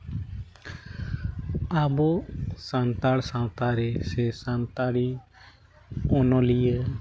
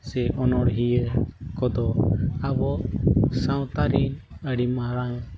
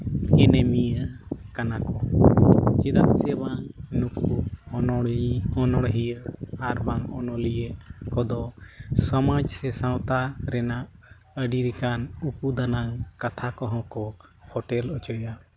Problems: none marked